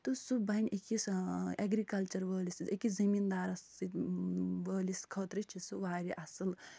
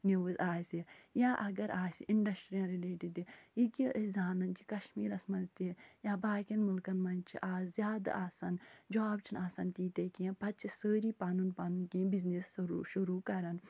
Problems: none marked